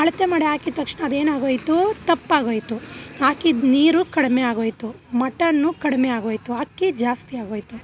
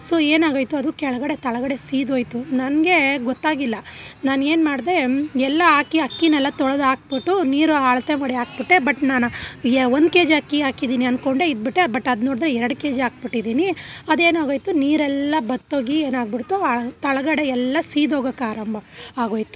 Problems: background sounds at intervals